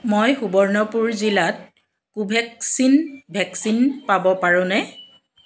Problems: background sounds at intervals